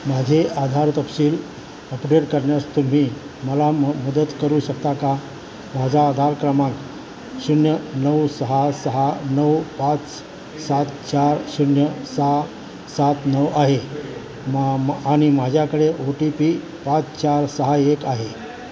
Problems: constant background noise, continuous background conversations